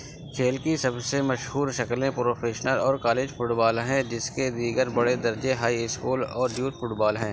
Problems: constant background noise